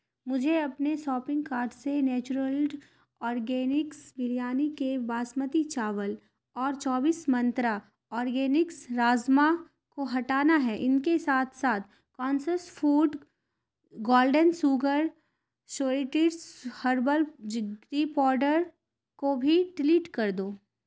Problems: constant background noise